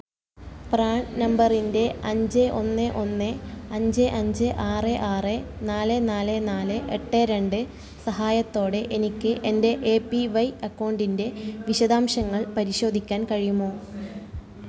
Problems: continuous background conversations